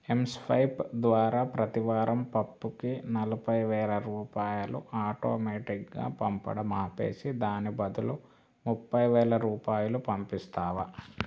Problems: low volume